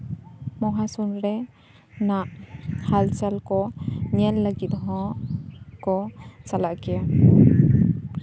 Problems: constant background noise